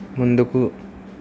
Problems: constant background noise